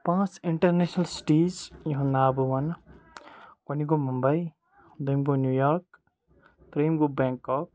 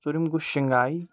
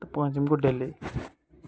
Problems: none marked